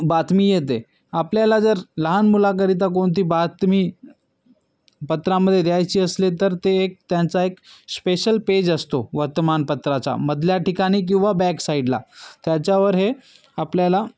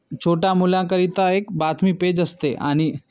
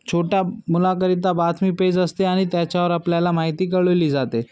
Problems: background sounds at intervals, background conversations at intervals